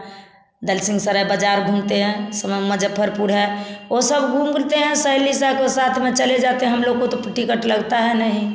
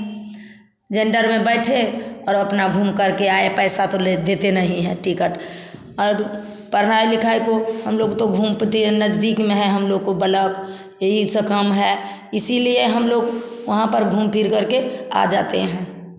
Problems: none marked